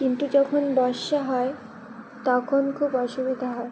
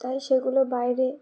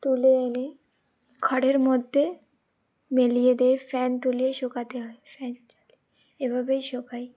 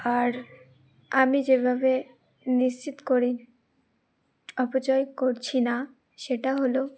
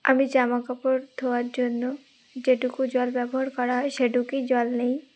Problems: none marked